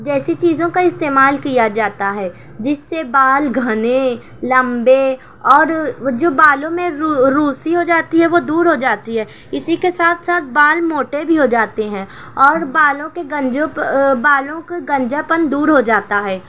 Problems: none marked